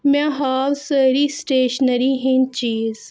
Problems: none marked